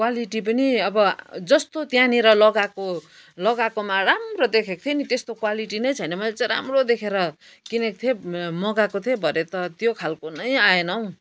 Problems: none marked